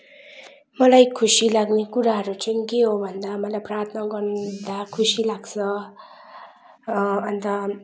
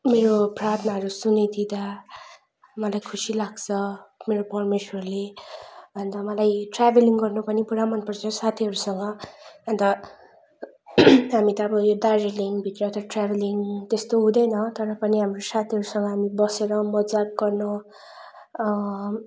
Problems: none marked